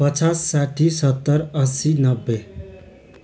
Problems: constant background noise